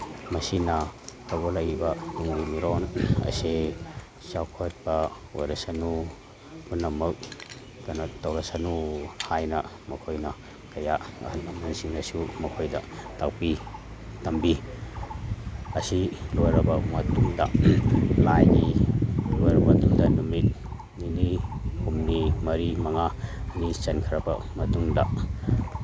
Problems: background sounds at intervals